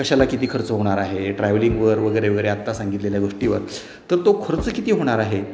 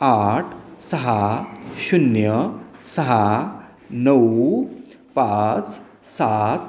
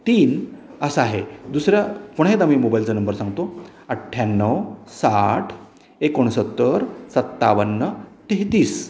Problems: constant background noise, background conversations at intervals, echo